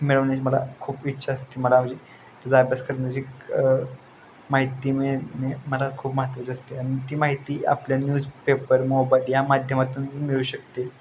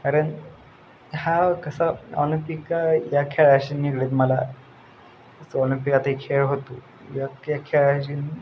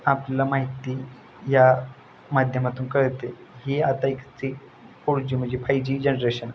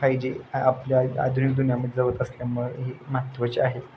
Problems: constant background noise